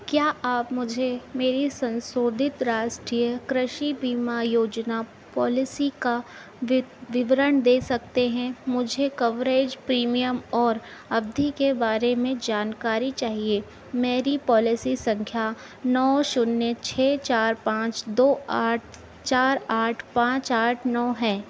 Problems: constant background noise